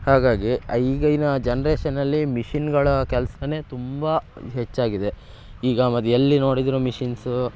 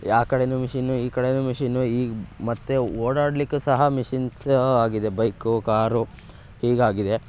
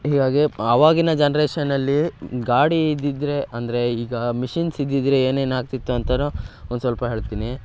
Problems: background sounds at intervals